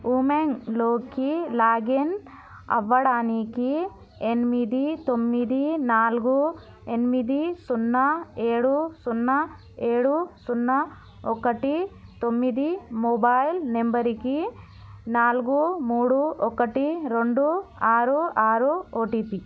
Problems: constant background noise, background conversations at intervals